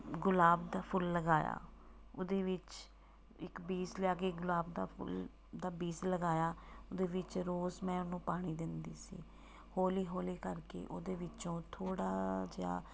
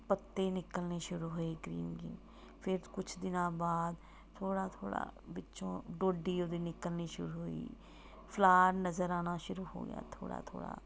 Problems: background sounds at intervals